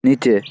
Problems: constant background noise